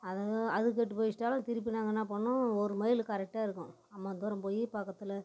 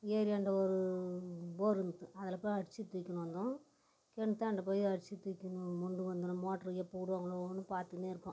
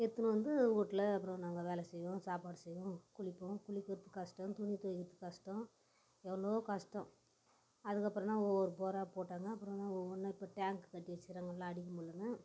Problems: background sounds at intervals